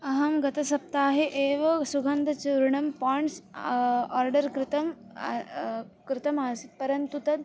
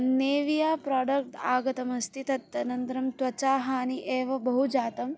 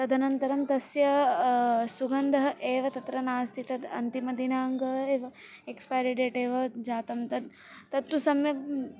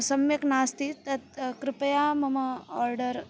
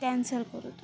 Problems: none marked